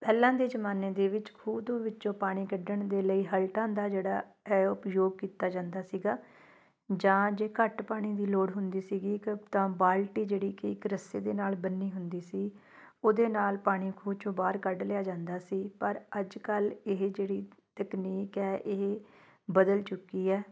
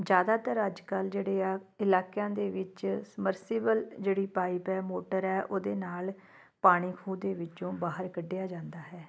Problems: background sounds at intervals